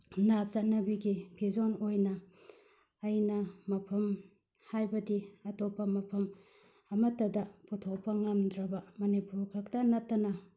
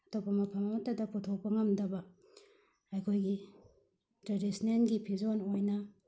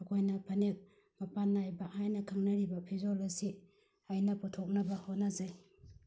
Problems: none marked